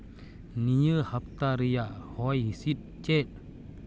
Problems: none marked